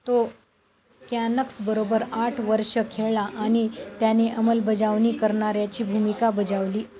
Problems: constant background noise